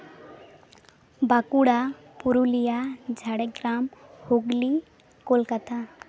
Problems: background sounds at intervals, background conversations at intervals